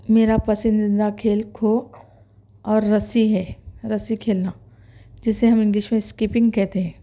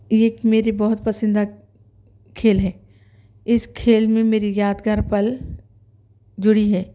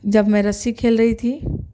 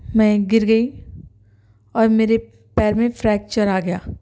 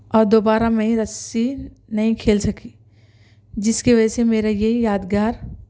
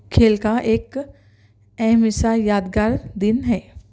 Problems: none marked